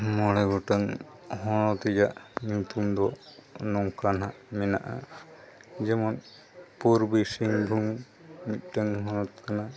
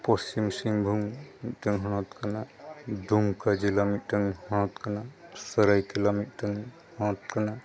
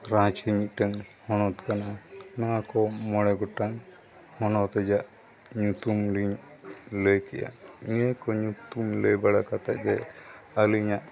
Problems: constant background noise, background conversations at intervals